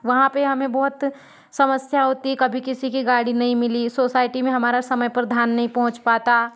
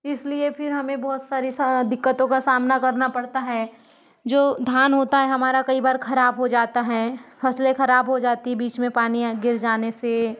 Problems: background sounds at intervals, background conversations at intervals